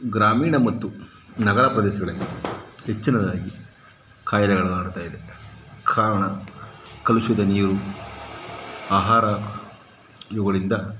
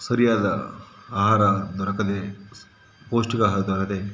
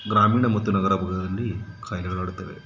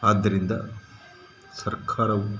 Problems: background sounds at intervals